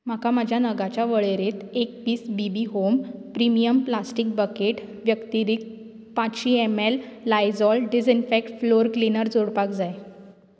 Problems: background sounds at intervals